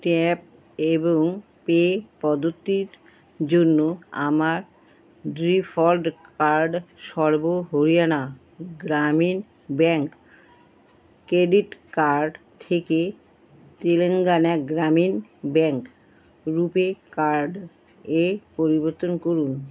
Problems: none marked